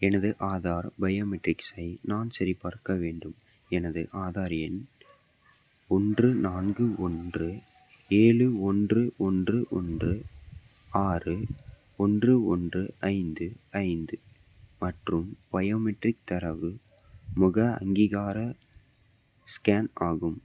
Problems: none marked